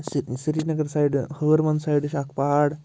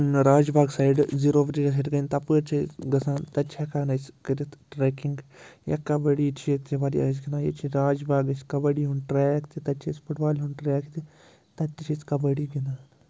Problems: constant background noise